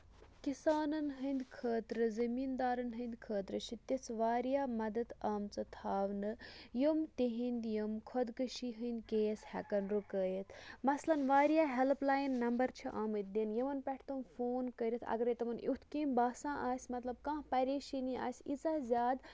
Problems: low volume